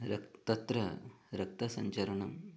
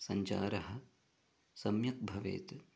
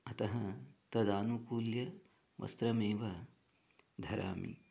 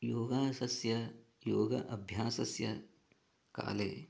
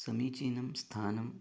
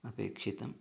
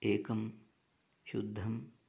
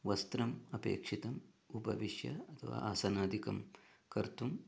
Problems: low volume